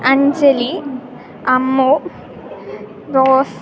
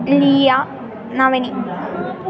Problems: constant background noise